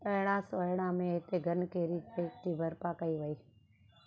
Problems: constant background noise, low volume